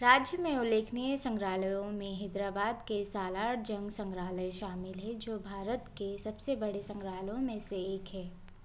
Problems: constant background noise